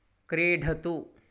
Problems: none marked